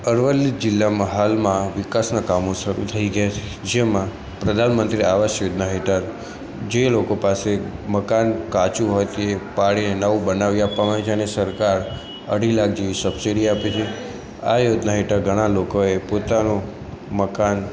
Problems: constant background noise